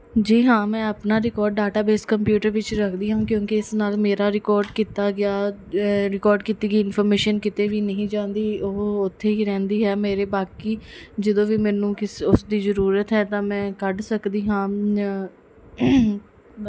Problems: none marked